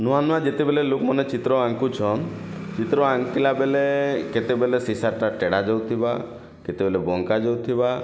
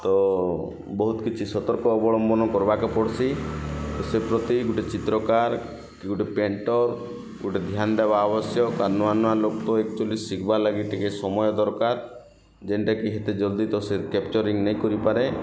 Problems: constant background noise